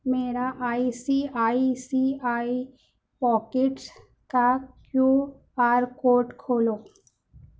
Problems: none marked